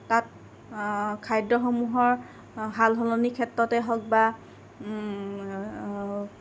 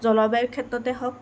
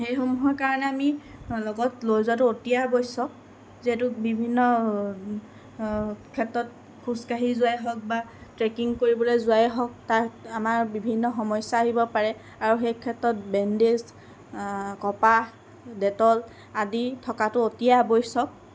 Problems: constant background noise